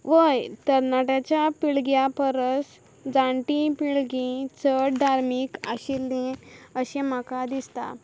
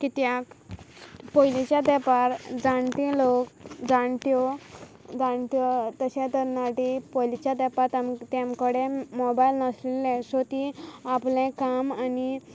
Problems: background sounds at intervals